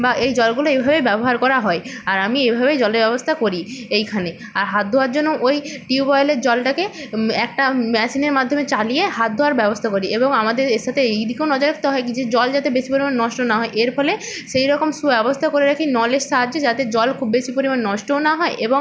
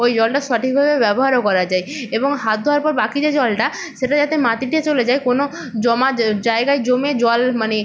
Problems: none marked